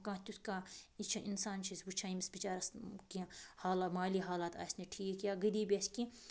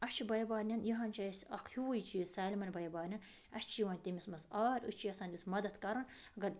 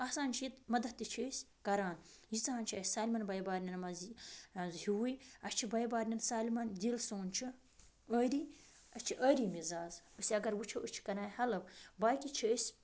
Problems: background sounds at intervals